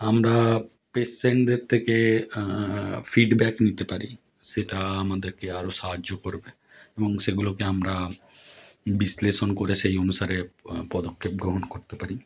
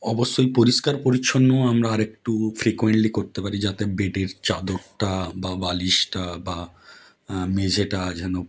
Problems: none marked